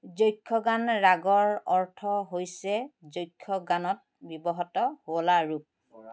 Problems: none marked